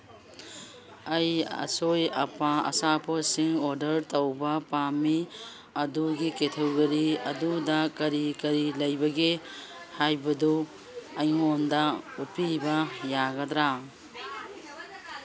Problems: background sounds at intervals